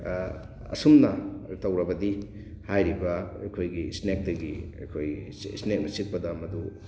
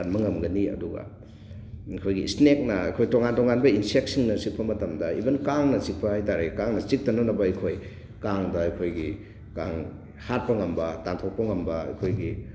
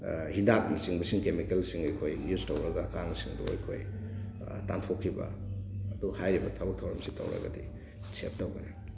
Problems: constant background noise